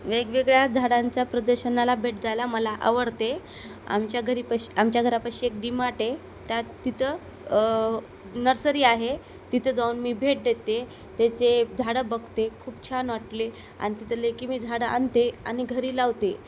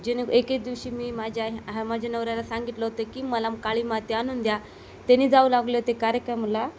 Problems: constant background noise